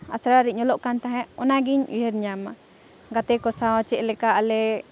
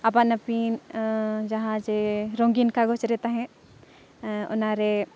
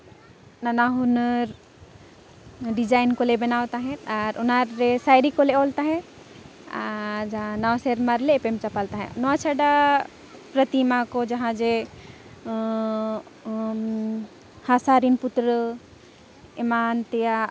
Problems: background sounds at intervals, background conversations at intervals